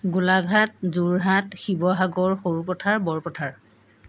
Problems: background sounds at intervals